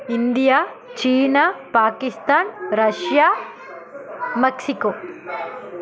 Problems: continuous background conversations